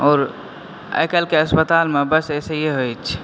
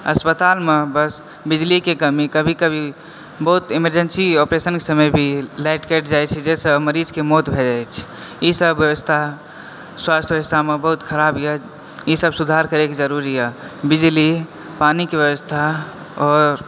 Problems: none marked